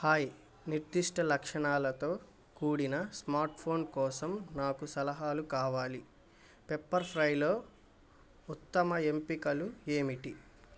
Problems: none marked